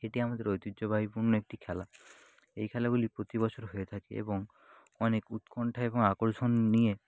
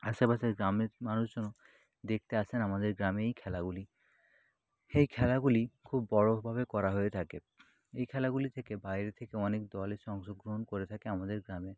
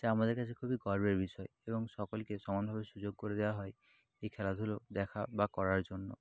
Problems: constant background noise